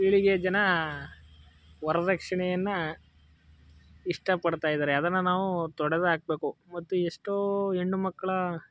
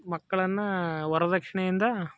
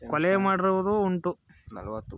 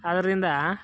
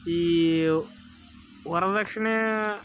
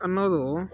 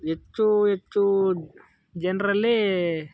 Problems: background sounds at intervals